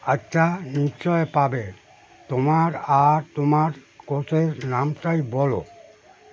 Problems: none marked